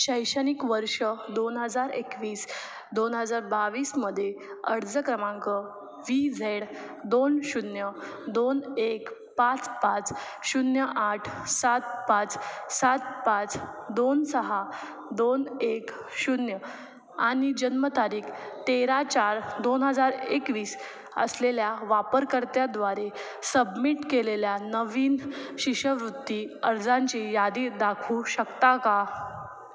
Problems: none marked